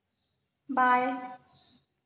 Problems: none marked